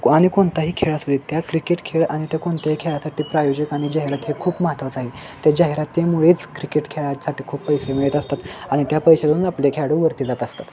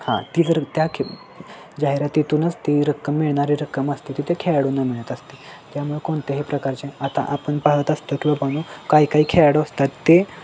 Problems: constant background noise, background conversations at intervals